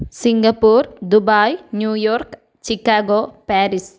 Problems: none marked